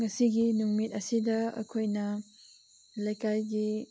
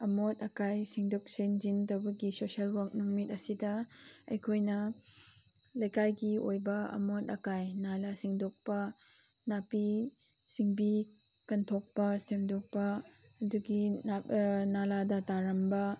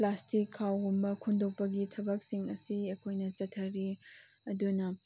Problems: constant background noise